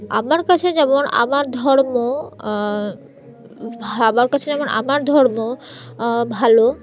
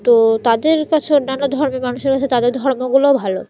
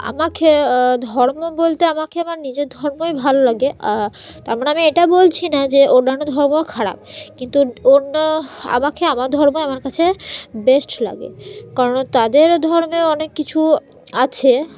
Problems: background sounds at intervals